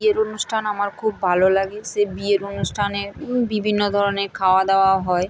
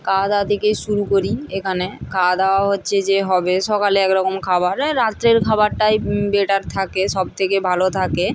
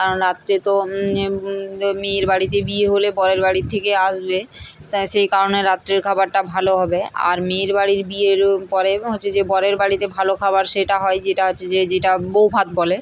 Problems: none marked